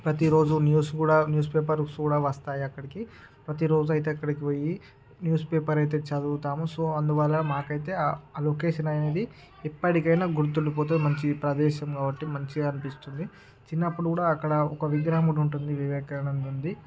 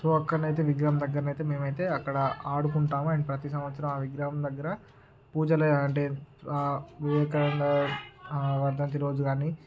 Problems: background sounds at intervals, background conversations at intervals